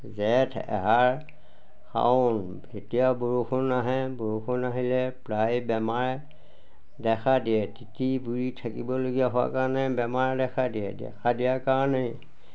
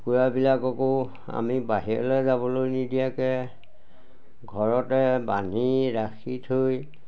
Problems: none marked